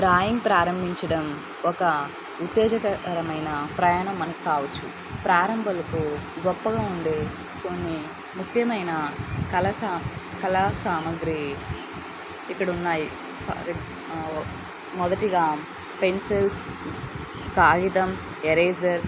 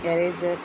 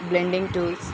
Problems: constant background noise